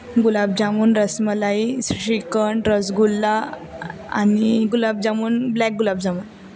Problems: constant background noise, continuous background conversations